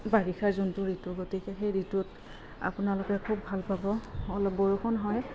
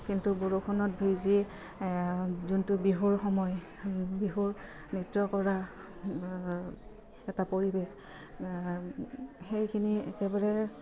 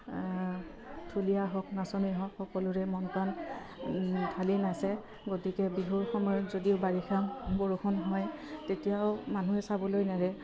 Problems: background sounds at intervals, low volume